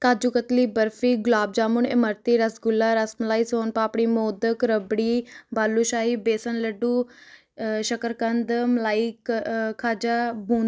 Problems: none marked